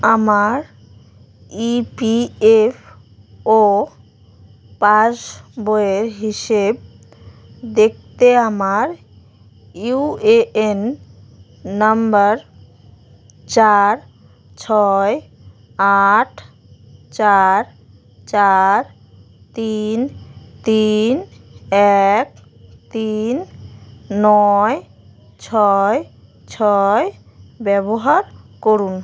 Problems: background sounds at intervals